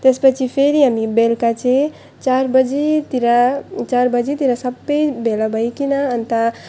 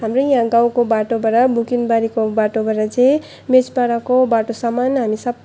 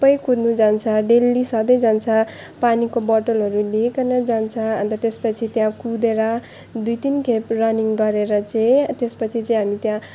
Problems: none marked